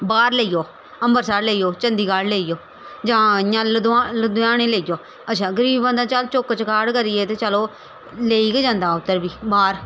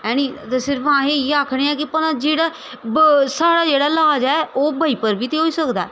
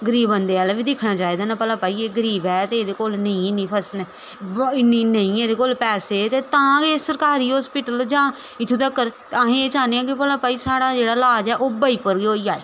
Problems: none marked